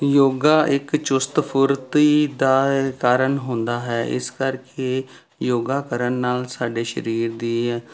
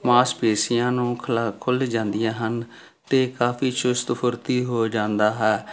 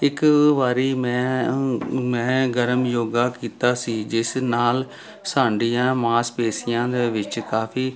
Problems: constant background noise